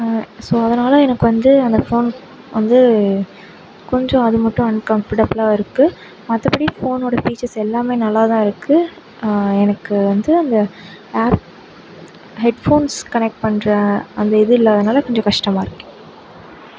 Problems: none marked